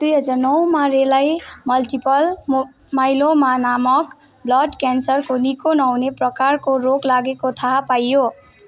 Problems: background sounds at intervals